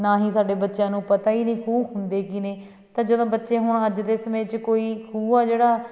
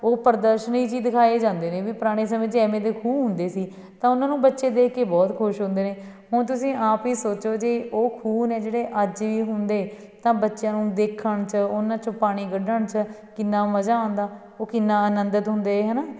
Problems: background sounds at intervals